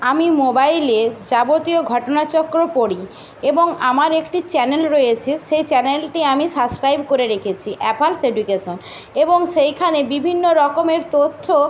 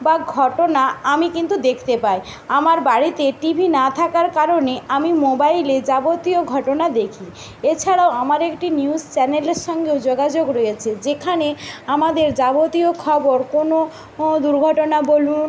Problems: constant background noise